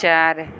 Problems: none marked